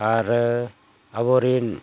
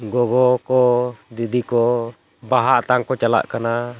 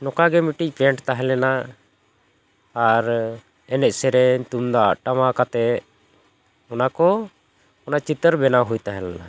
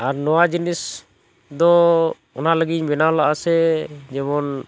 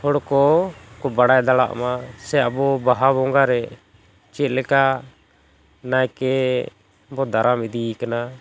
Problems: background sounds at intervals